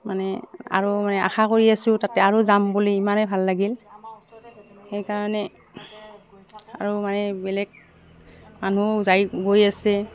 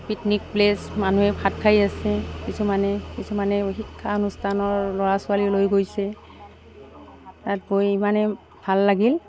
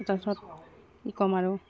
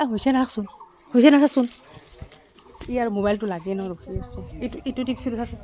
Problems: background sounds at intervals